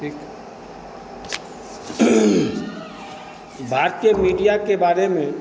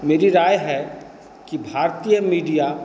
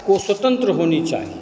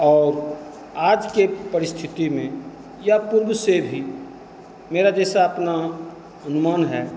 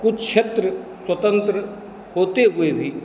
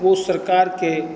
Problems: constant background noise